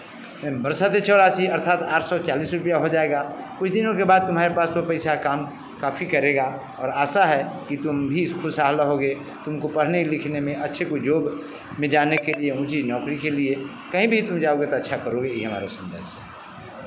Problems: none marked